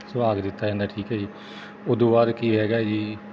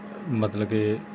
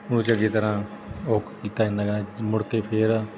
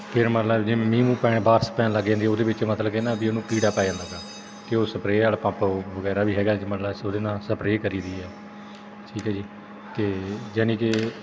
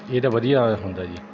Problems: background sounds at intervals